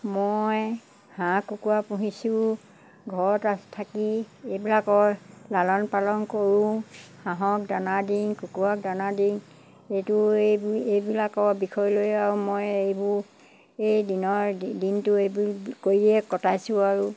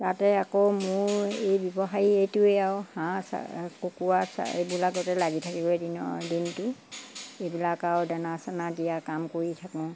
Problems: constant background noise